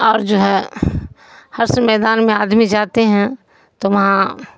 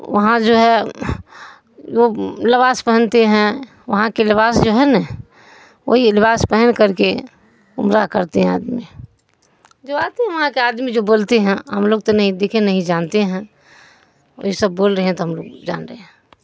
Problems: none marked